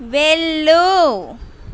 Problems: none marked